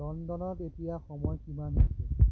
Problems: background sounds at intervals